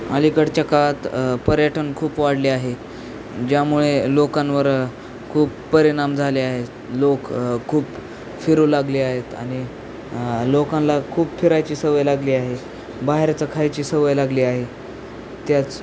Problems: constant background noise, background conversations at intervals